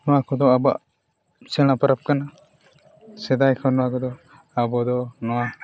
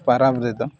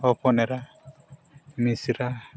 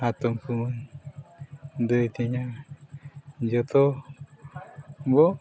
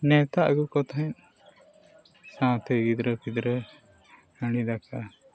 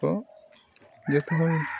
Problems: constant background noise, continuous background conversations